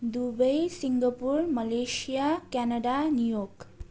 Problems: none marked